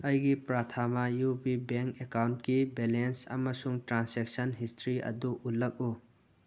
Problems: none marked